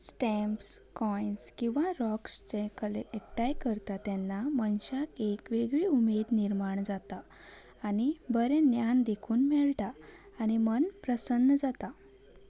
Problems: none marked